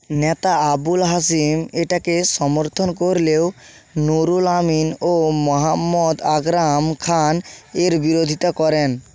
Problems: constant background noise